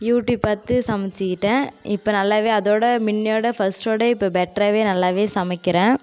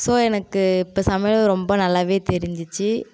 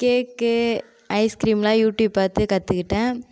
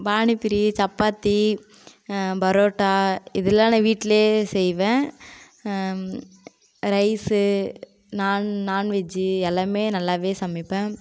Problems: constant background noise